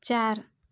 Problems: constant background noise